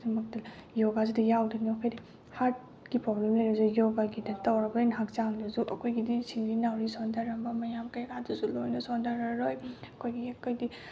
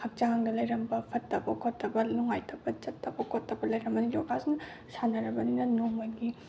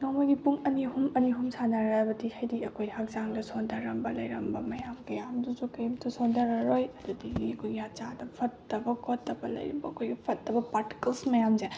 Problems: none marked